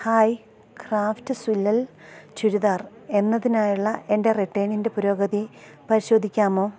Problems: low volume